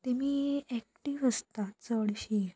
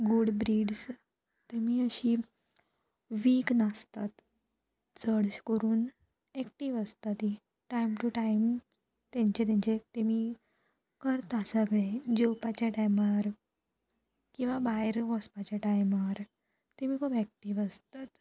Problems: constant background noise